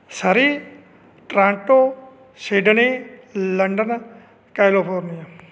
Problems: none marked